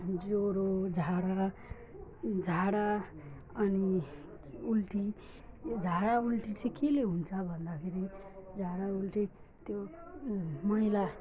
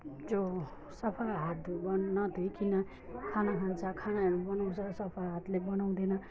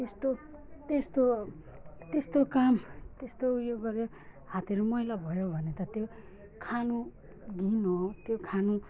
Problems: none marked